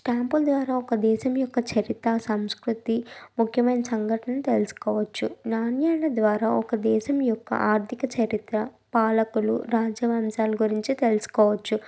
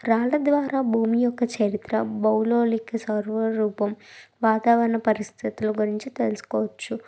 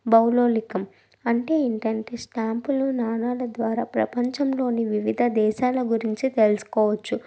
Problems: background sounds at intervals